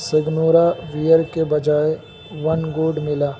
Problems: constant background noise, low volume